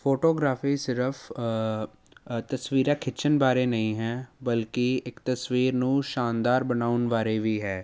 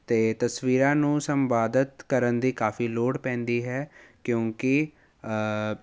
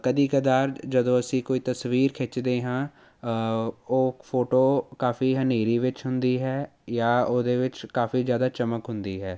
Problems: none marked